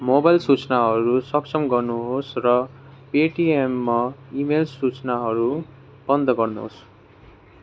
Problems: background conversations at intervals